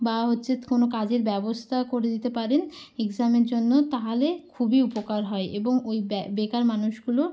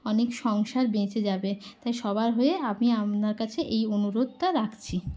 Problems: none marked